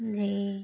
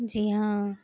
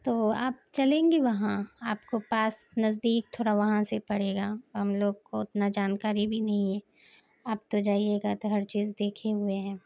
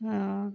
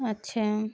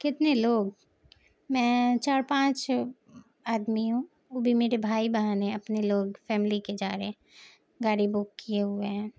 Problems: background sounds at intervals, low volume